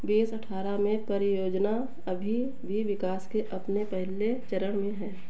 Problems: none marked